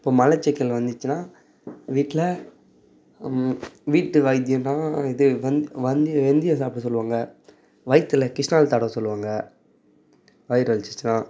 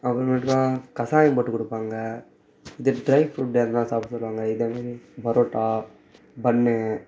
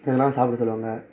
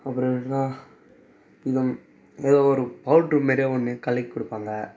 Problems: background sounds at intervals